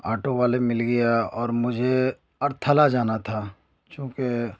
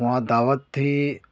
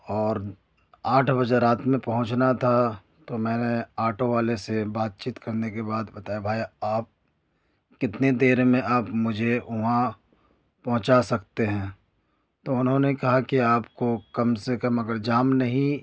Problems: none marked